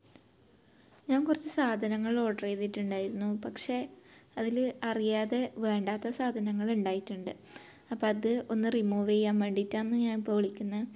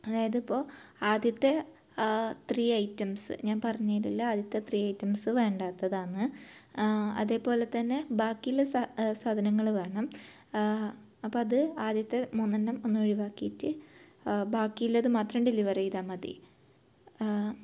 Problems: low volume